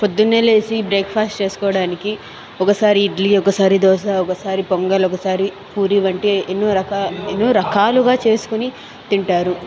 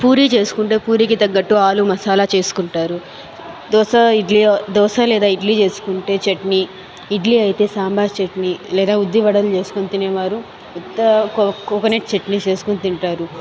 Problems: background conversations at intervals